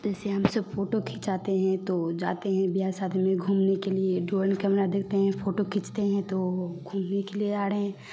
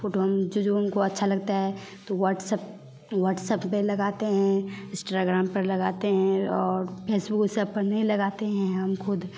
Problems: background sounds at intervals